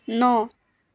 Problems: none marked